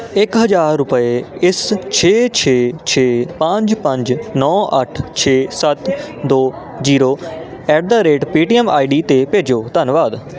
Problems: none marked